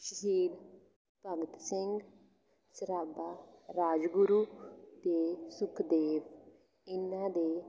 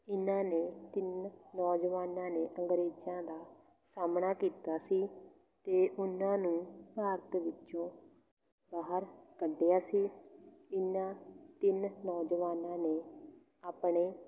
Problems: background sounds at intervals, continuous background conversations